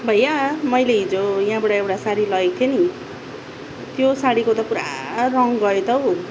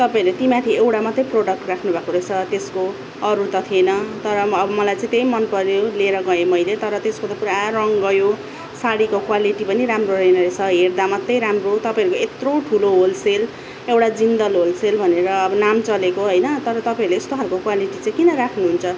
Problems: none marked